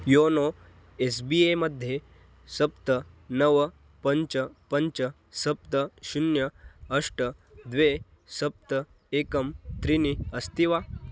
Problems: constant background noise